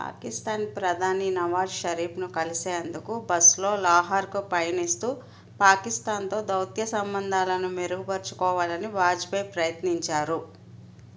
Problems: constant background noise